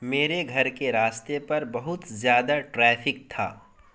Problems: constant background noise